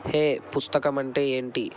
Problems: constant background noise